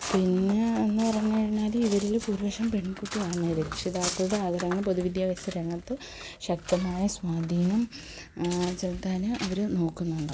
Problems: background conversations at intervals, low volume